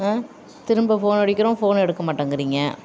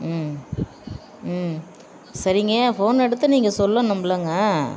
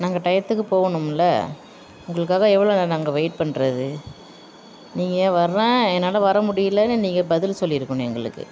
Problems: background sounds at intervals